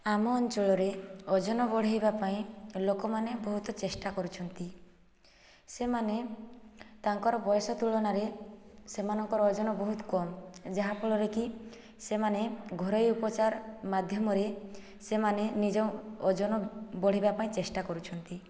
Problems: low volume